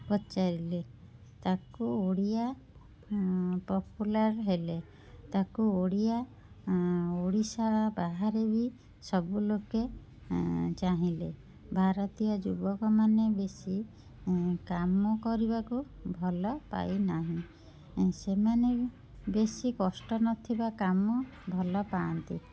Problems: constant background noise